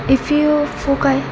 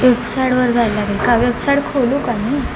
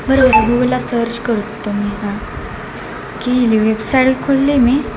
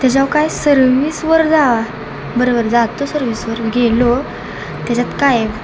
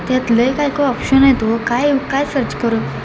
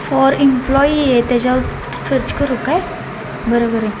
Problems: constant background noise